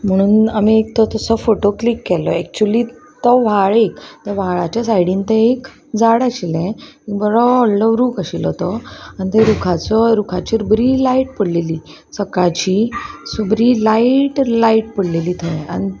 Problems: constant background noise, background conversations at intervals